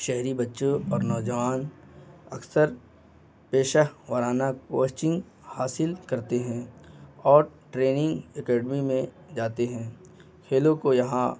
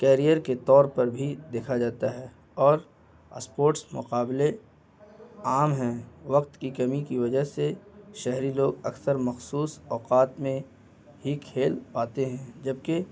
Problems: constant background noise